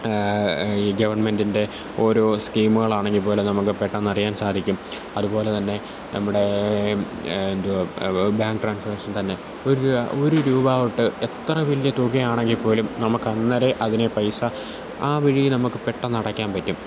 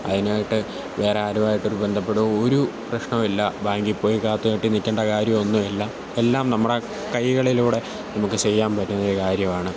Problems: constant background noise